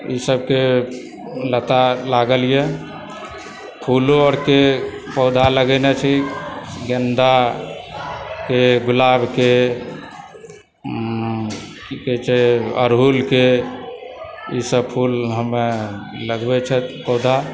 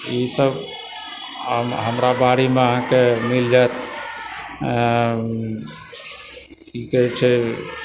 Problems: background sounds at intervals, continuous background conversations